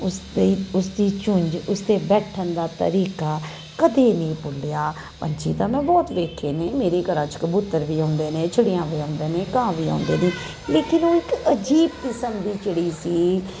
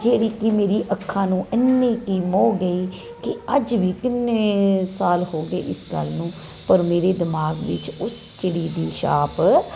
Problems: constant background noise